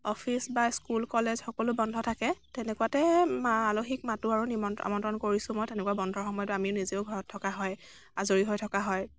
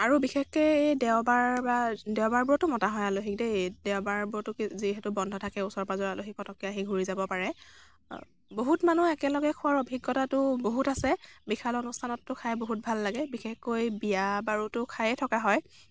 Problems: background sounds at intervals